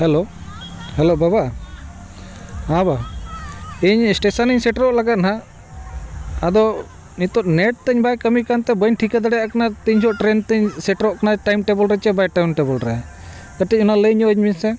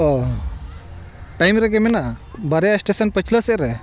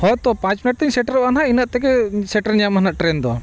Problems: constant background noise, background conversations at intervals